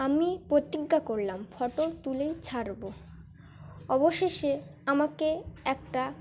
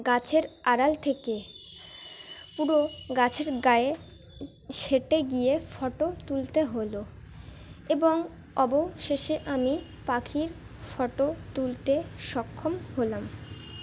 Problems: constant background noise, continuous background conversations